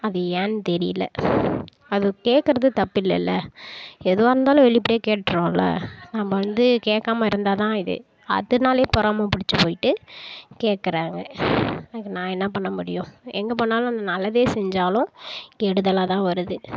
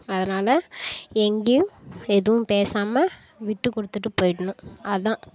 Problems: none marked